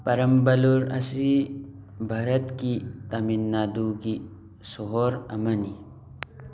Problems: background sounds at intervals